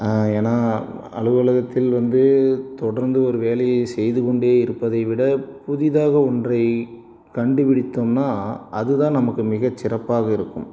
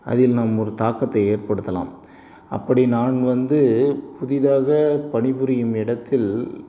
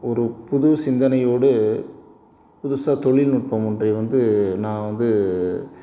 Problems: background sounds at intervals